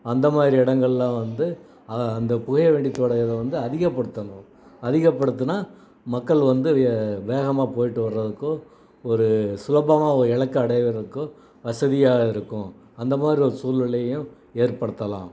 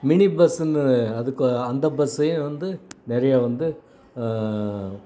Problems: none marked